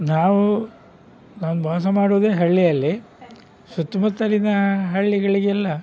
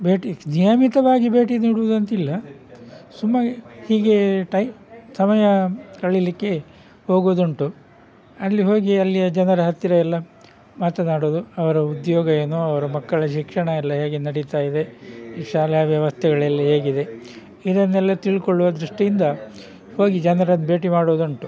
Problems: background sounds at intervals